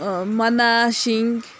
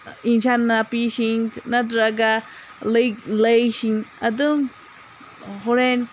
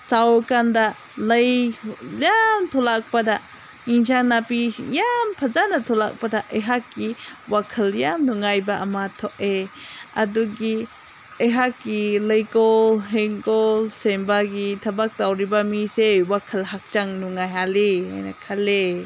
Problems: none marked